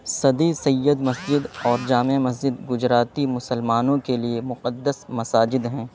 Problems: constant background noise